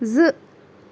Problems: none marked